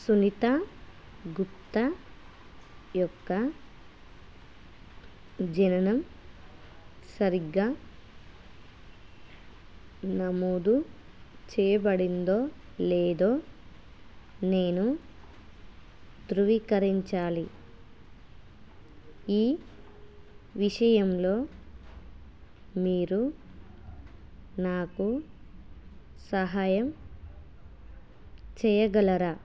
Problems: none marked